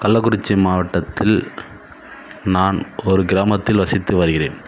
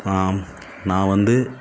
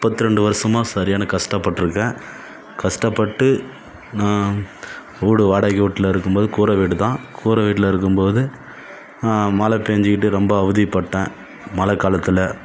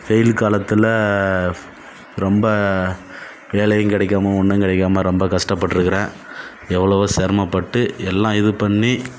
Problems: background sounds at intervals